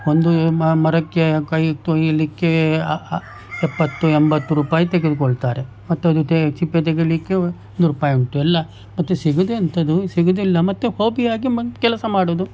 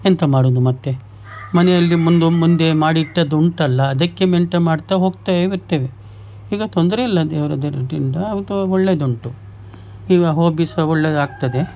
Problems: background sounds at intervals